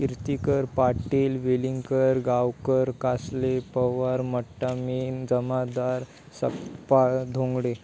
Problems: background sounds at intervals